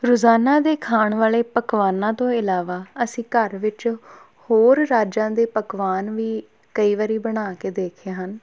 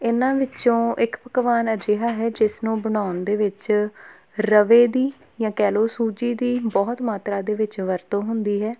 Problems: none marked